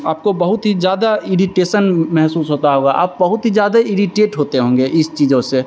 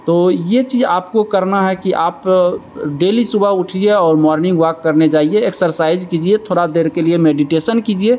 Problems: constant background noise